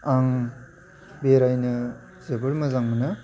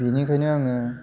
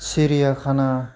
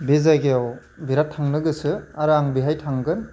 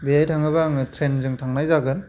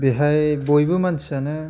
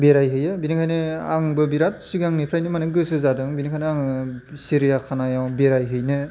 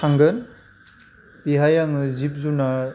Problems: constant background noise